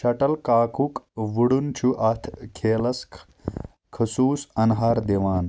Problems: none marked